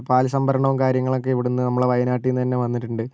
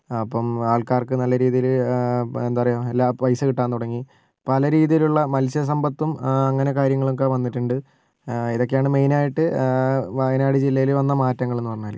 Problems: none marked